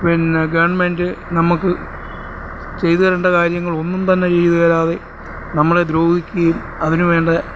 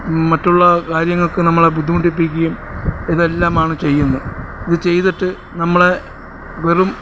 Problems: constant background noise